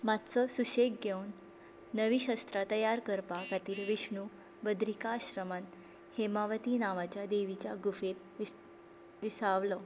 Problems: background sounds at intervals